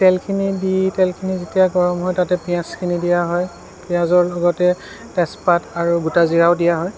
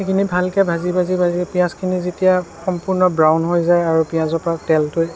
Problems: constant background noise